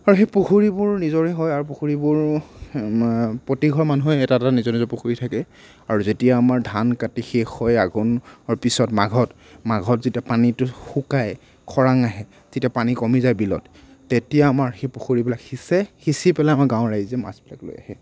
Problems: none marked